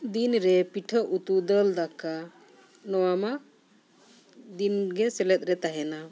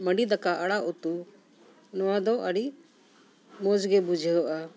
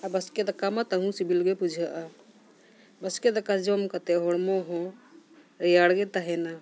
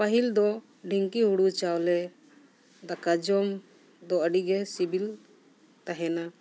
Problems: none marked